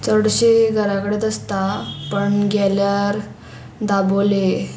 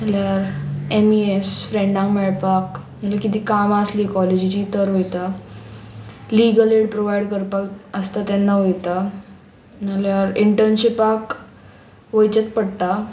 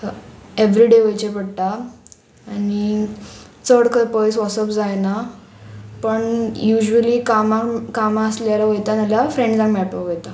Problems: none marked